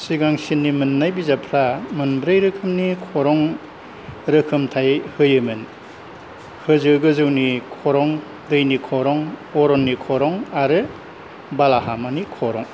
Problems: none marked